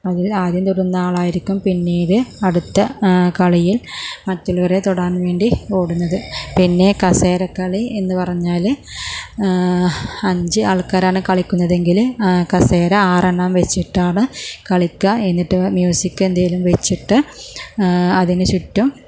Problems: low volume